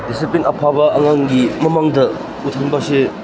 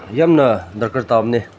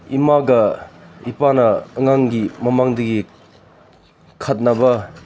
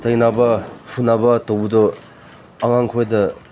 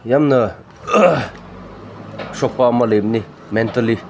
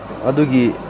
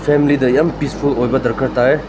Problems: none marked